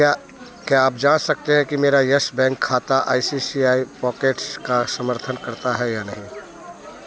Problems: constant background noise